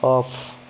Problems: constant background noise